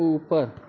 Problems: constant background noise, continuous background conversations